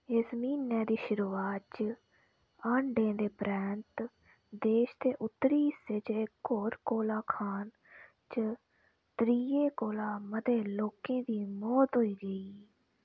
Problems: none marked